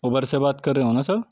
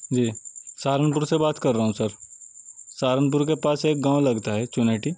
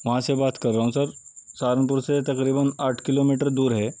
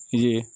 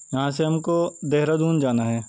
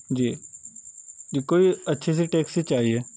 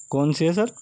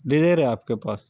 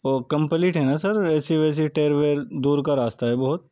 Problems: background sounds at intervals